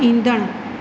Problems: constant background noise, echo